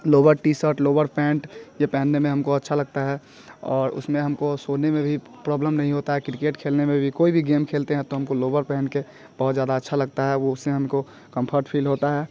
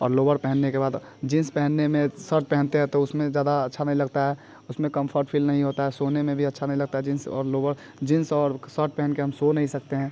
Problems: background sounds at intervals